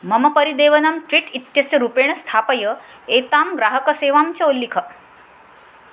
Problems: constant background noise